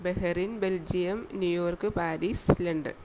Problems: none marked